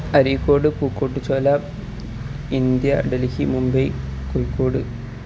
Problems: constant background noise